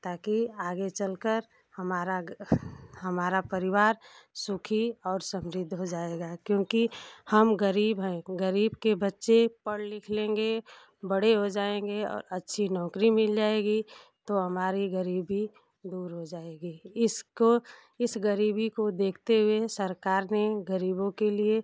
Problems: none marked